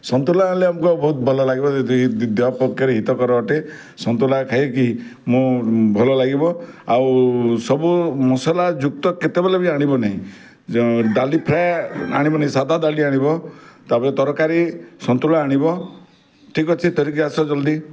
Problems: none marked